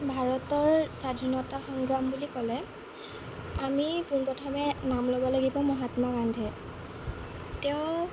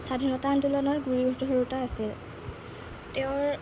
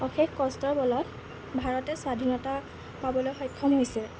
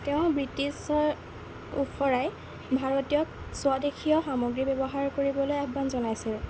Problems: constant background noise